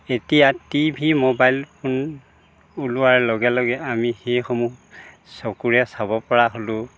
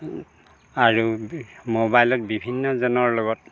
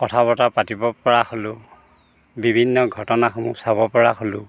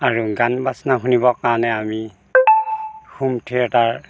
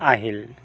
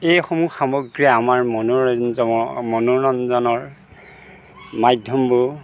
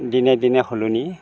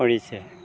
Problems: constant background noise